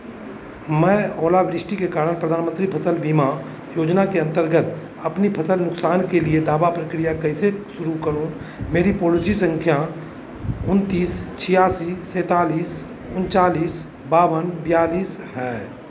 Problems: constant background noise